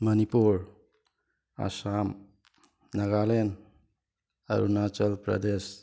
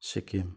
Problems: background sounds at intervals